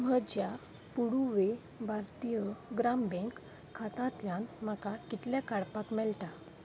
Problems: constant background noise